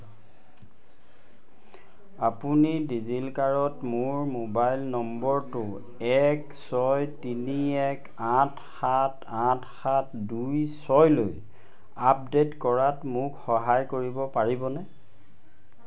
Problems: constant background noise, background conversations at intervals